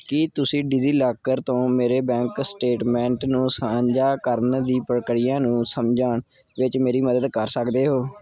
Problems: background sounds at intervals